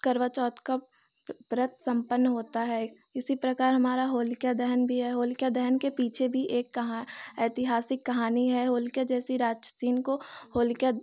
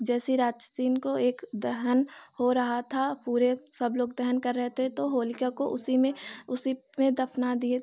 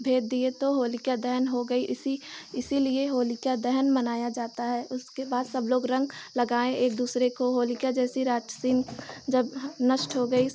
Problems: none marked